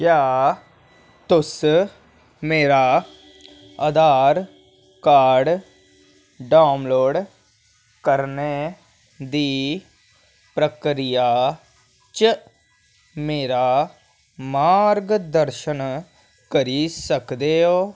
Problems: none marked